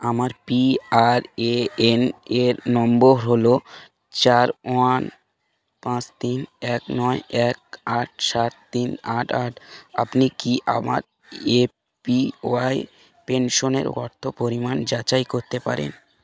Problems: background conversations at intervals